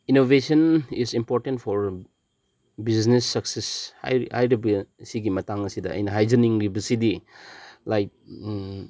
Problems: background sounds at intervals